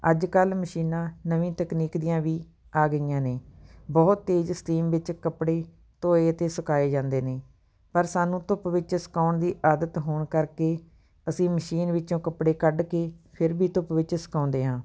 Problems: background sounds at intervals